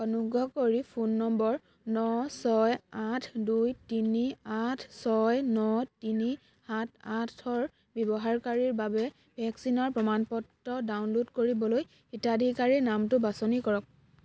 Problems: background sounds at intervals